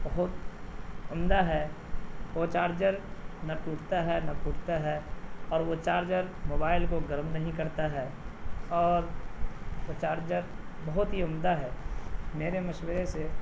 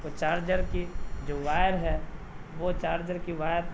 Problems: low volume